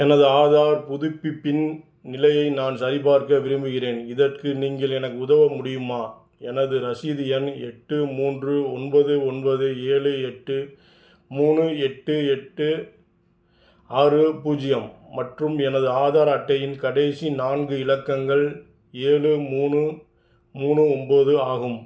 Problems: background sounds at intervals